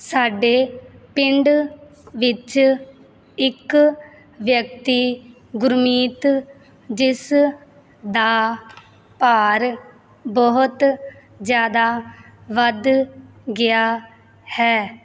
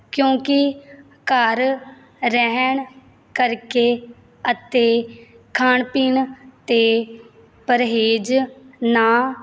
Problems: background sounds at intervals